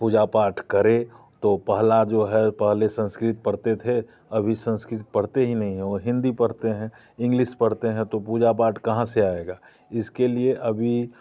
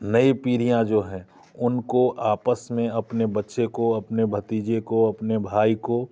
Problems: constant background noise